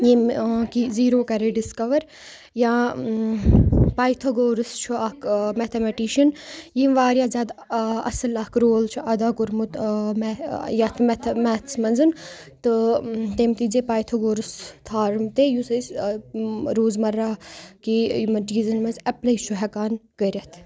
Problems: none marked